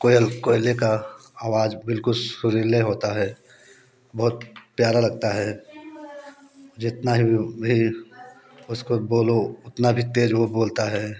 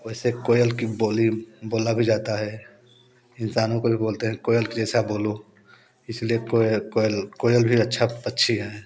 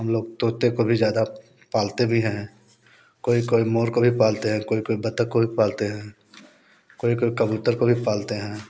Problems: background sounds at intervals, background conversations at intervals